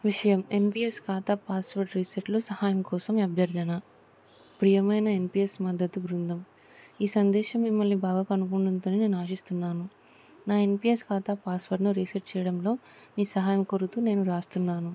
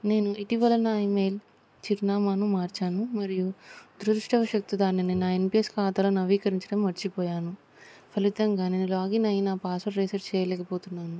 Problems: constant background noise